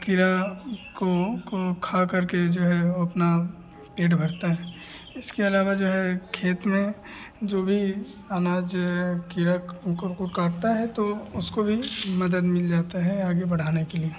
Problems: none marked